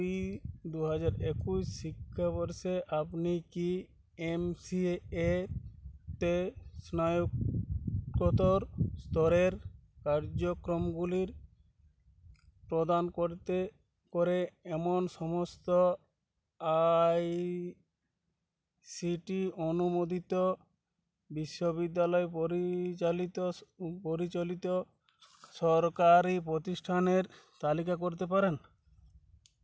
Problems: constant background noise